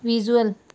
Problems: none marked